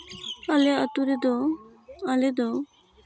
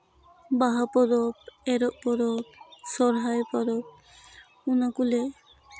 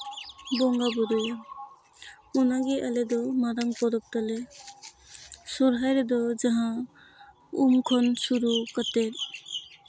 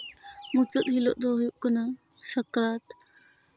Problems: constant background noise